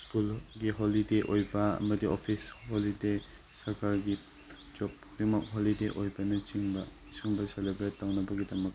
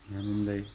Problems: constant background noise